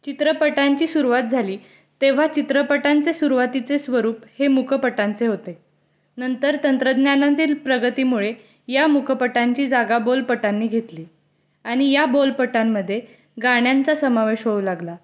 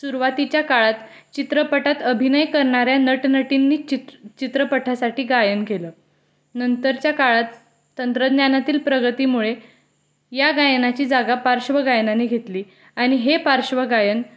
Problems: constant background noise